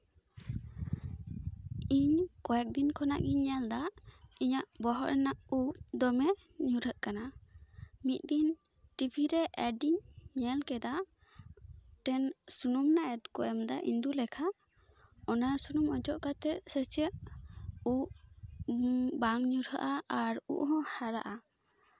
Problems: background sounds at intervals